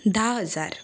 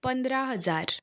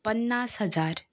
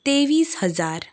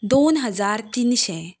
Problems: background sounds at intervals